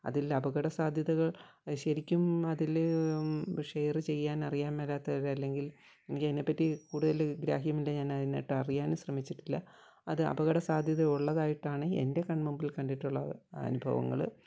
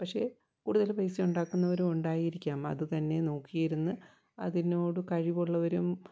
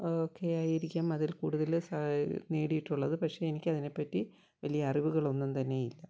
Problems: constant background noise, low volume